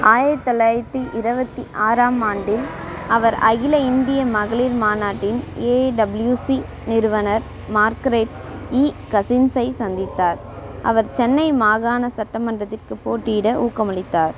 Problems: constant background noise